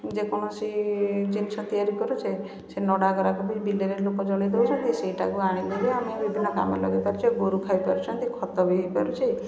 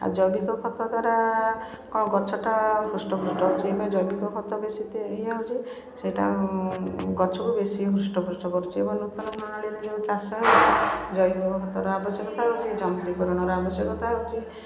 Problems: background sounds at intervals, continuous background conversations